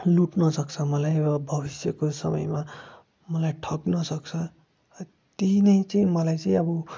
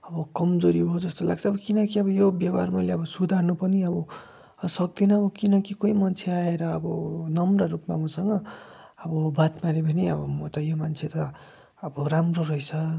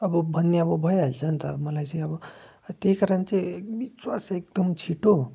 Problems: constant background noise